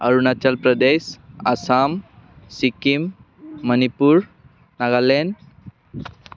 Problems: constant background noise